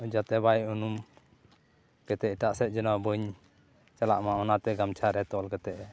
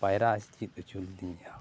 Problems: constant background noise, background conversations at intervals